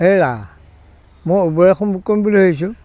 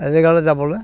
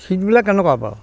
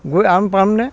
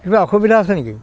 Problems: background conversations at intervals